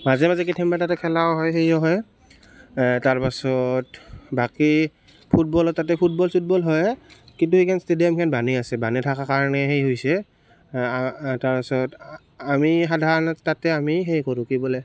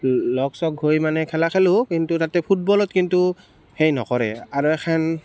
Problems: constant background noise